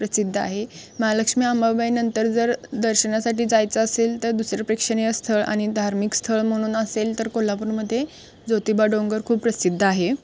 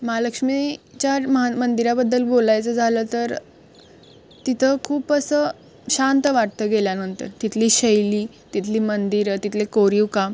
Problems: constant background noise